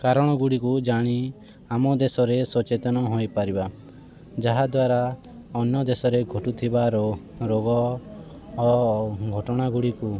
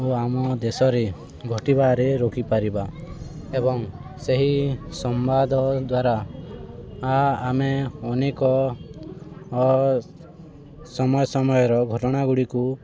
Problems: constant background noise